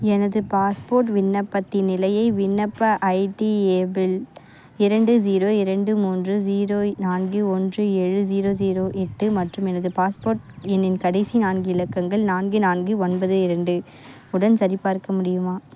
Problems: constant background noise